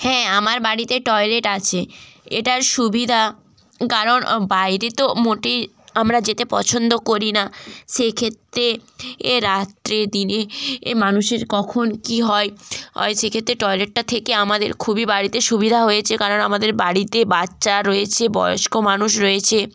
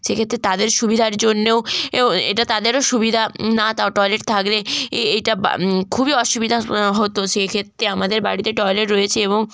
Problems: none marked